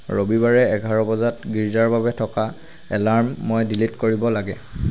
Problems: constant background noise